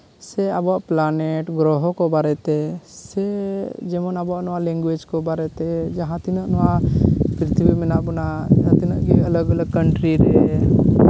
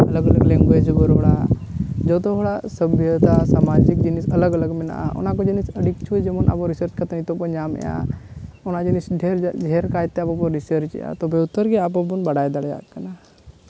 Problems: none marked